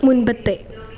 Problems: background sounds at intervals